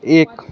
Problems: constant background noise, continuous background conversations